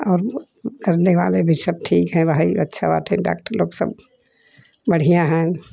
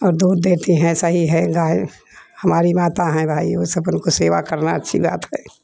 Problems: none marked